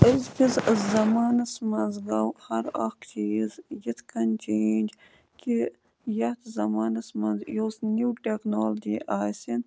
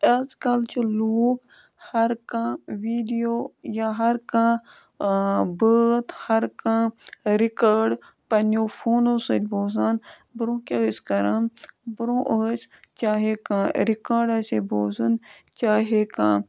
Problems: none marked